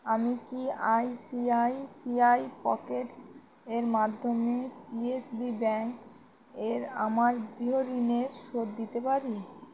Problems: constant background noise